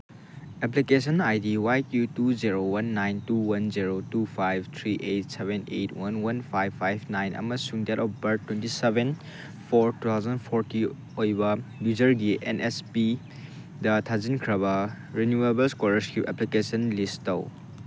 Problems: constant background noise